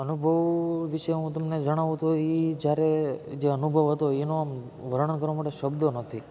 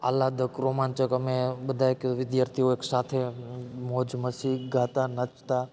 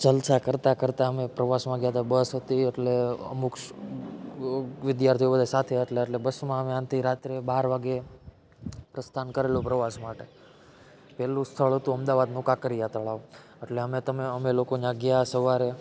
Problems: none marked